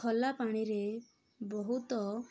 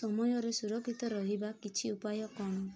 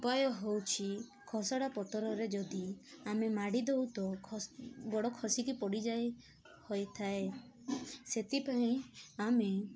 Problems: constant background noise, continuous background conversations